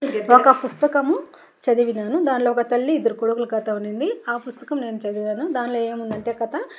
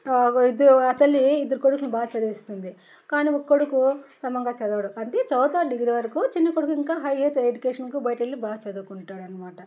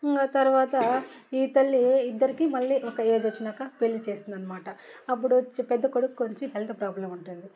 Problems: none marked